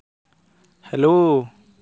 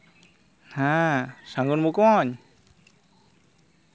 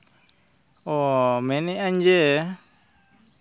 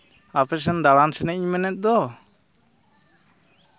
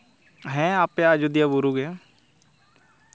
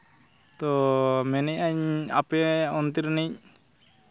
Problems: constant background noise, continuous background conversations